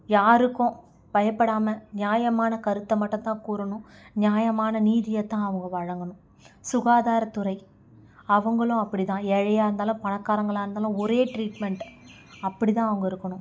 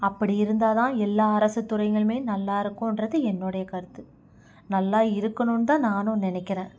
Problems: constant background noise